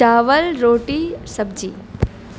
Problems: constant background noise